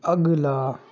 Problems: background sounds at intervals, background conversations at intervals